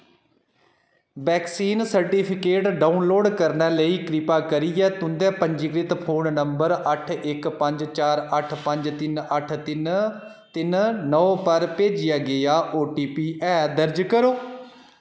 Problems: none marked